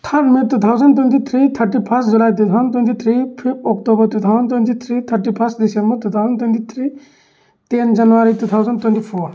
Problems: none marked